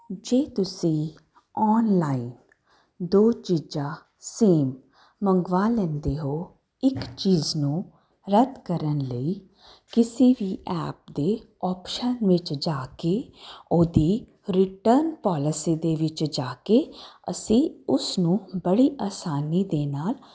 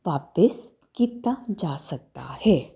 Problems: constant background noise